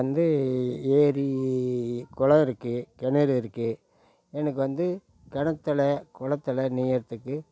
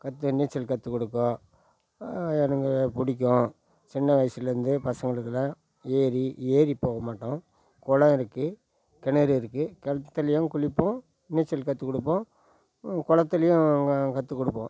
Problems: none marked